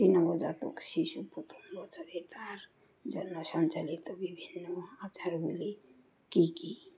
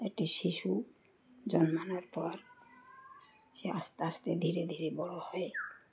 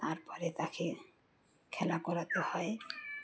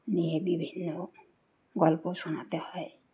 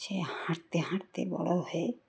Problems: none marked